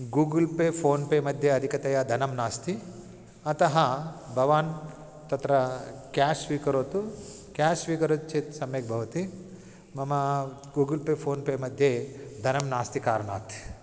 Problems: constant background noise